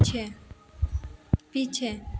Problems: constant background noise